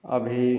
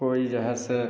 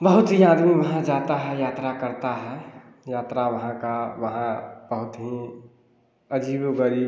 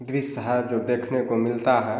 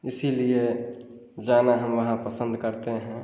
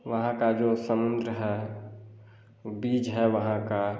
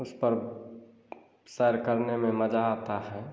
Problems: none marked